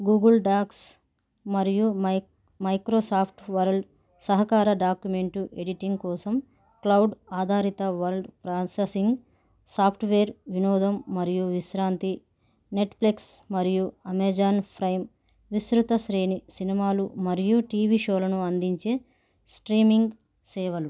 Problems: none marked